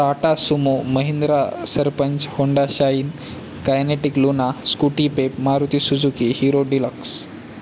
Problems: constant background noise